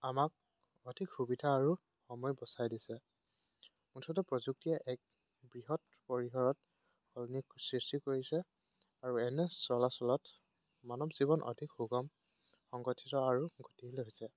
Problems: background sounds at intervals